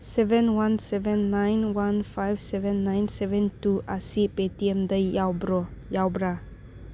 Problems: background sounds at intervals